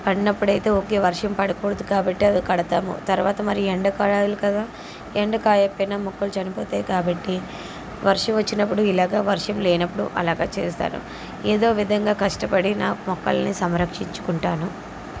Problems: constant background noise